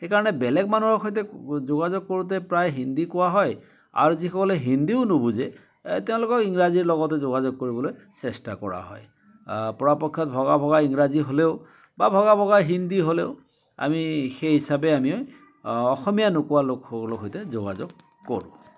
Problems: continuous background conversations